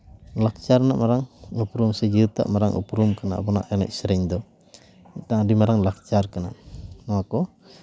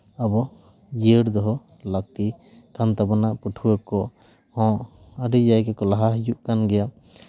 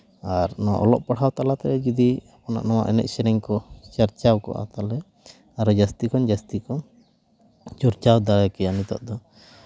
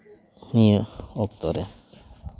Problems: background sounds at intervals